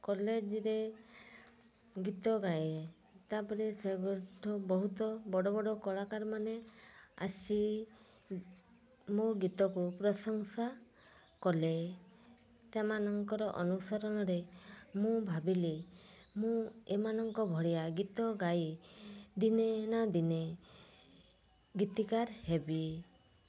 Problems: low volume